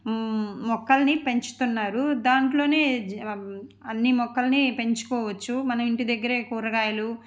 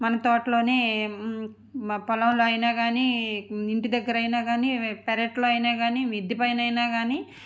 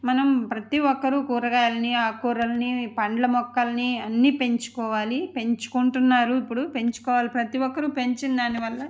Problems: none marked